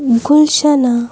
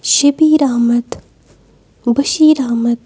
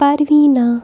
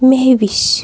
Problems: constant background noise